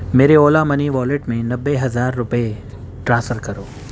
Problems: constant background noise